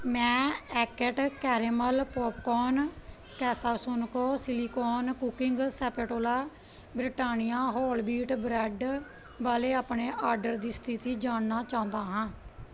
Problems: background conversations at intervals